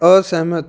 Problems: none marked